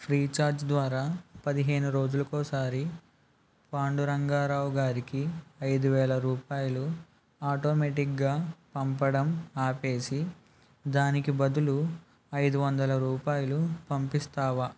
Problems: none marked